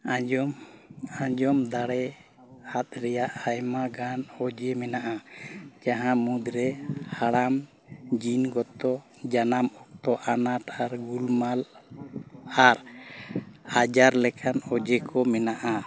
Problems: background sounds at intervals, background conversations at intervals